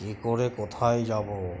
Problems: constant background noise